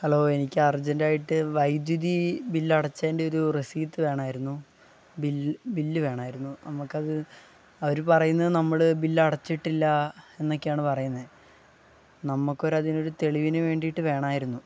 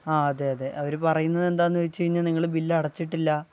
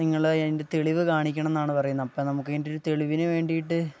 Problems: low volume